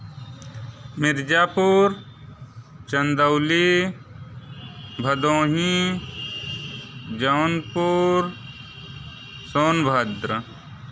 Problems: background sounds at intervals